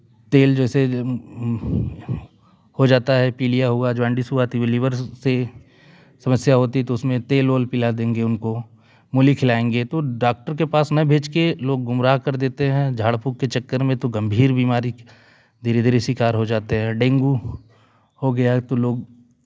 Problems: none marked